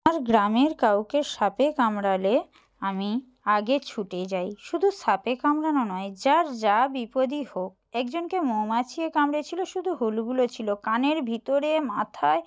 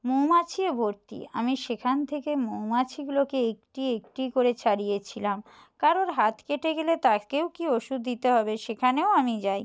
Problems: none marked